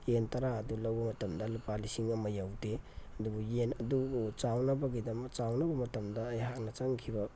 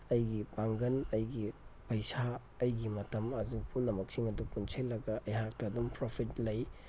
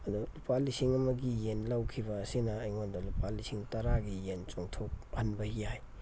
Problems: background sounds at intervals